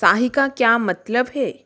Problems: constant background noise